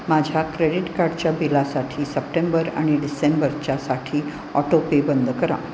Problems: constant background noise